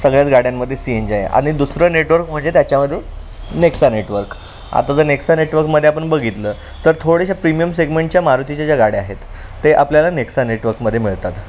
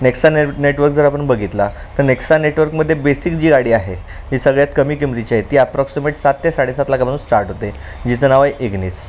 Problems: constant background noise, background conversations at intervals